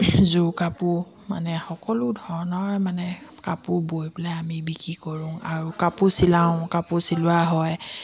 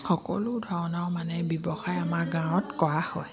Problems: background sounds at intervals